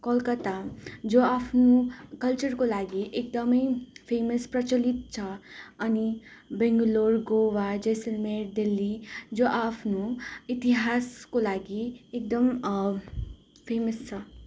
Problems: none marked